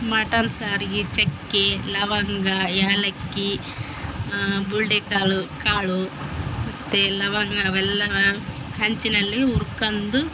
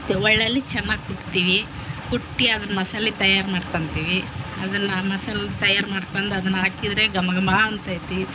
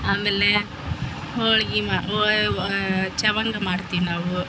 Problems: background sounds at intervals